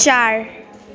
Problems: constant background noise